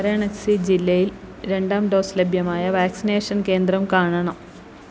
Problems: constant background noise